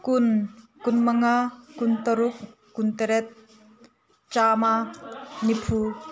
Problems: background conversations at intervals